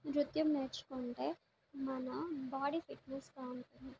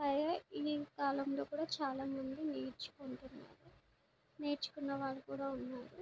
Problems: constant background noise